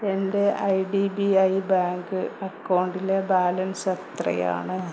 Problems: constant background noise